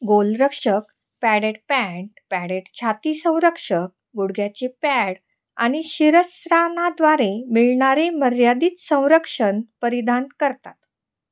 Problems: none marked